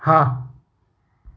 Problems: none marked